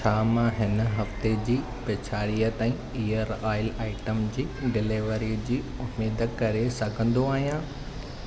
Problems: none marked